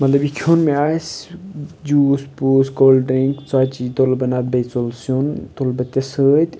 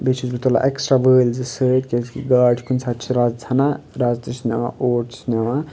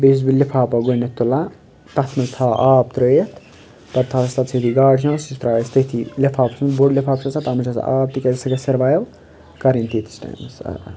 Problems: constant background noise, background conversations at intervals